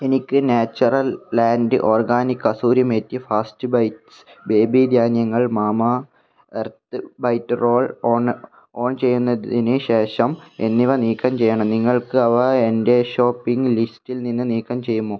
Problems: low volume